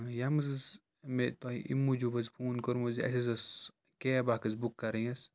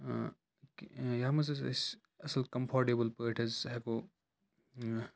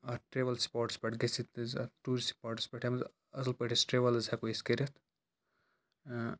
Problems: background sounds at intervals